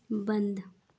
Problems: none marked